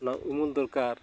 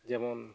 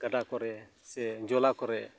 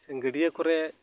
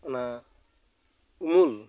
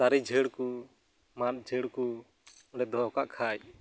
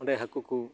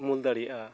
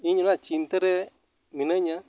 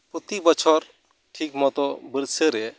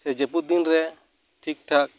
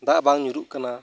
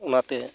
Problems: none marked